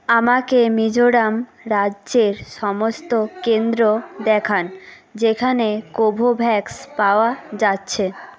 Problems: continuous background conversations